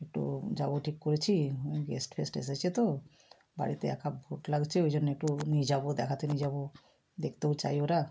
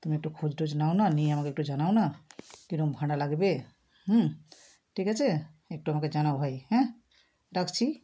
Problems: none marked